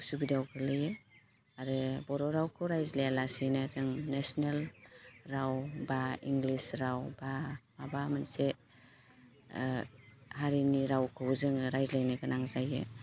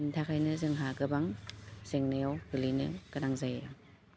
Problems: constant background noise